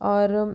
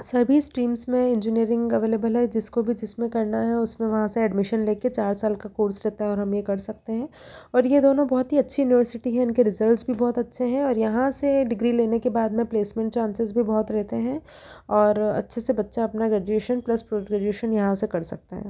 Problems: none marked